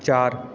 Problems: none marked